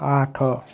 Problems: constant background noise, continuous background conversations